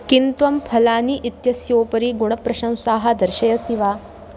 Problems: constant background noise